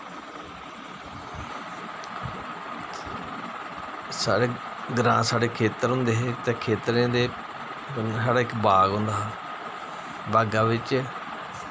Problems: constant background noise